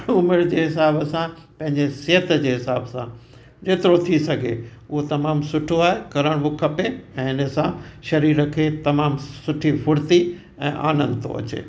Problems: constant background noise, echo